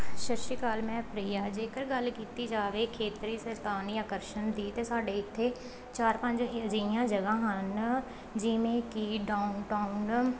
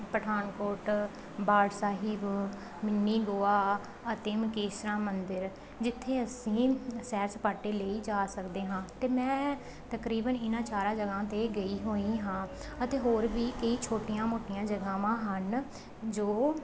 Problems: background conversations at intervals